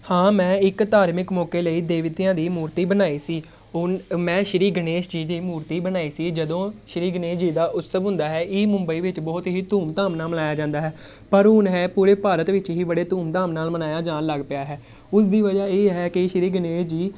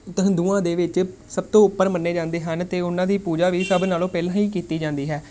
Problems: background conversations at intervals